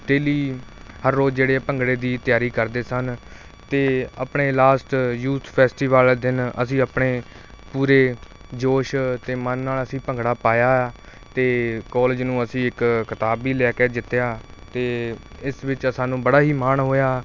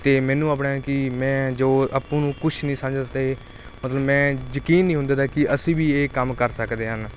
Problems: constant background noise